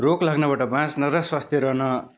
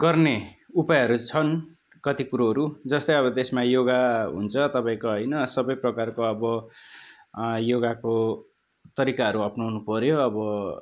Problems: constant background noise